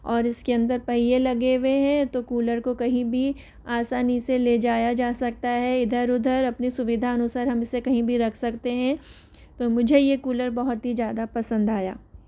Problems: none marked